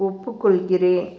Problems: constant background noise